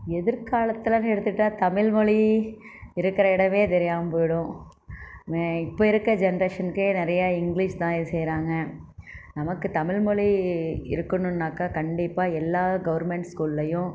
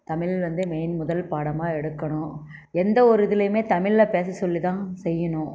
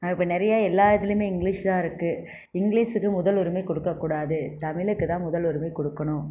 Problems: none marked